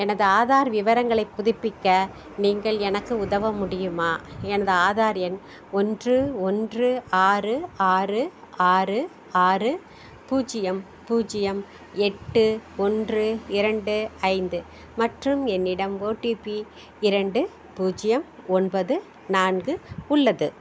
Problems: none marked